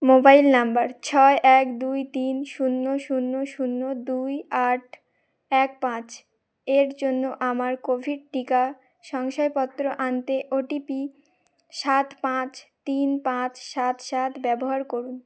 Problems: none marked